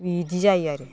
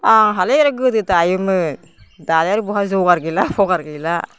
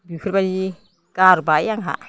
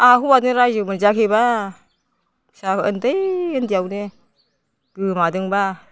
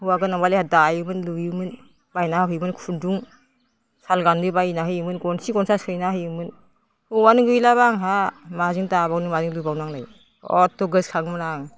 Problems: constant background noise